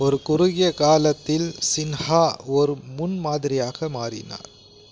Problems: constant background noise